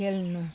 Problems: constant background noise